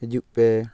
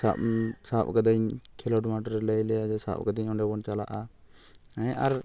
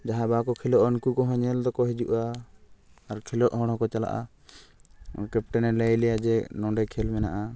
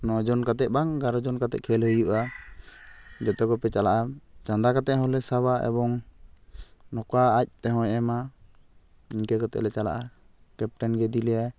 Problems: none marked